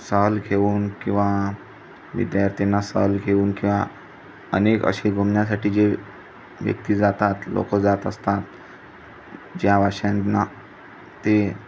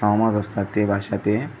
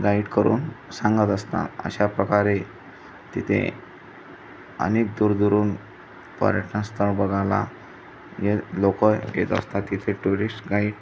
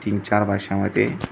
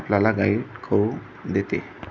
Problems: constant background noise, background conversations at intervals